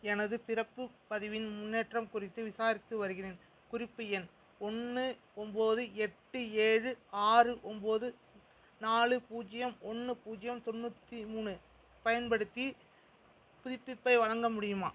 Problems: background sounds at intervals